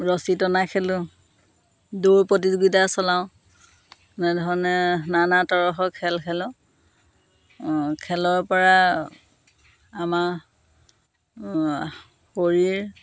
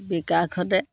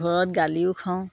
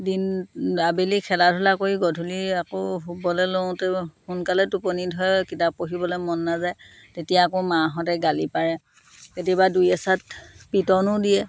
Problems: none marked